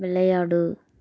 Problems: none marked